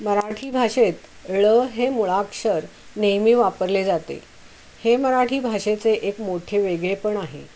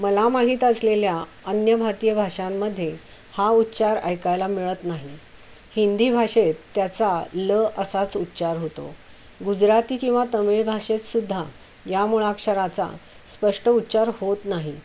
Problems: constant background noise